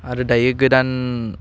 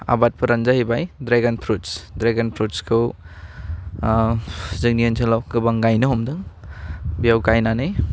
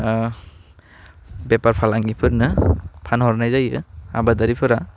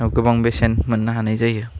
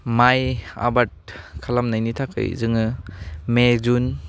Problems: constant background noise